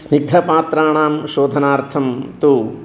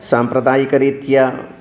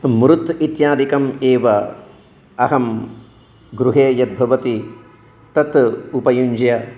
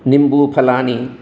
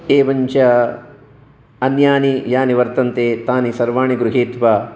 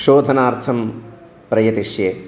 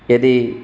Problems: continuous background conversations